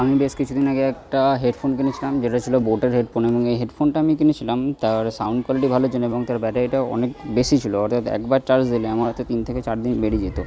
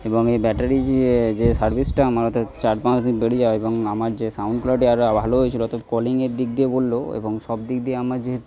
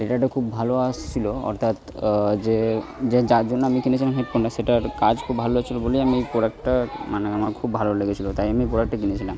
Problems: background conversations at intervals